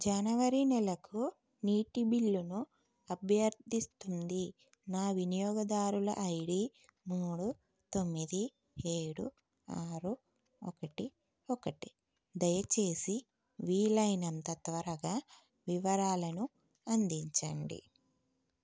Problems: none marked